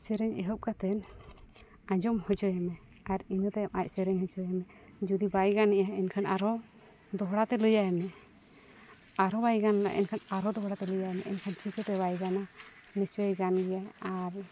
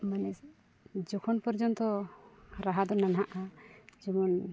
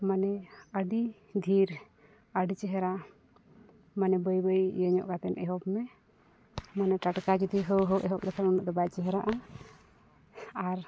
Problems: background sounds at intervals